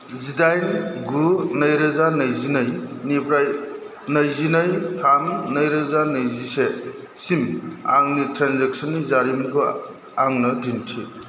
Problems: constant background noise